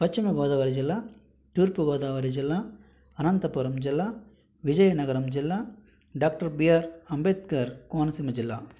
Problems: none marked